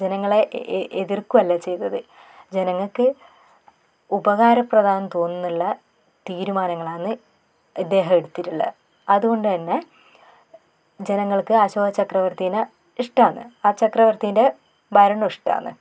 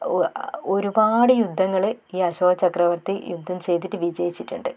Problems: none marked